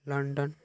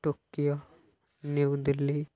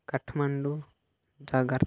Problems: none marked